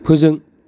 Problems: constant background noise